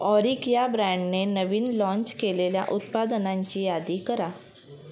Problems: none marked